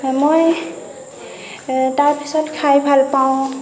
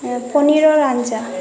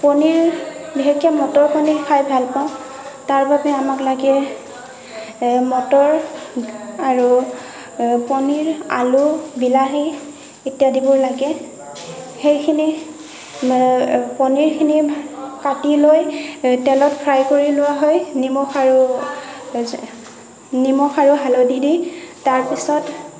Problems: continuous background conversations